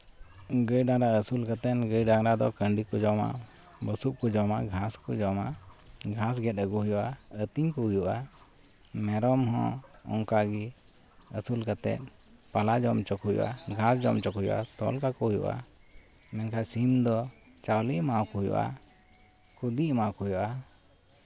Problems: none marked